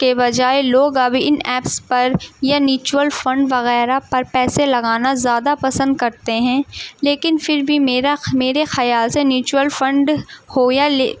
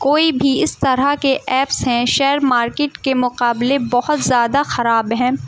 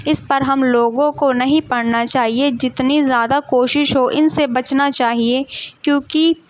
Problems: background sounds at intervals, background conversations at intervals